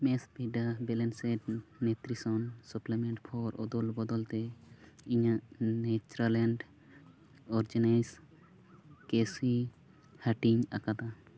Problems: none marked